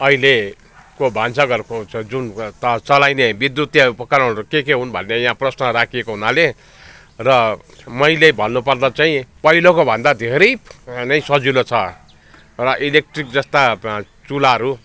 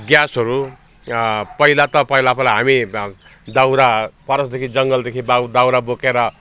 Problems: constant background noise, background conversations at intervals